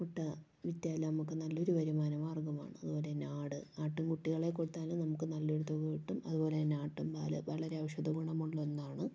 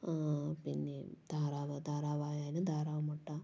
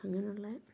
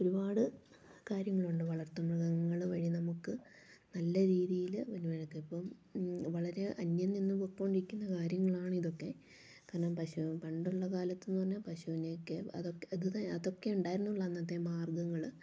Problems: low volume